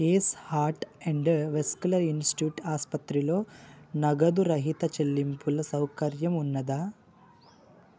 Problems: none marked